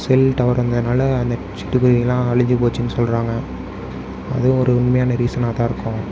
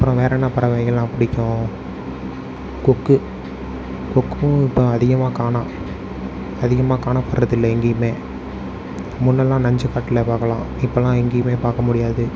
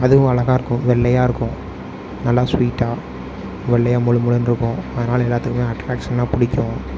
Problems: none marked